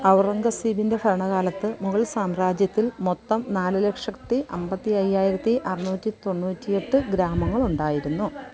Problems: continuous background conversations